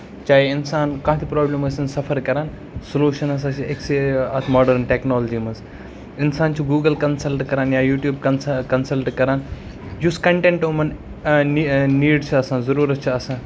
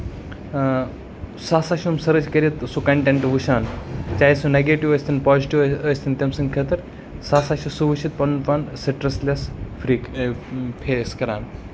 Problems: constant background noise